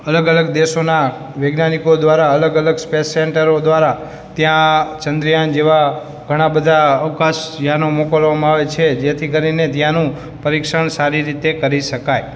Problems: background sounds at intervals